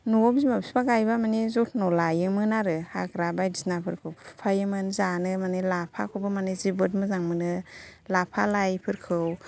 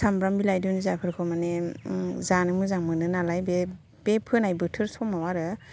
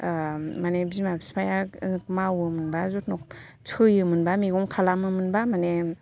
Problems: none marked